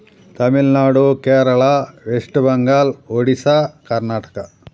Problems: background sounds at intervals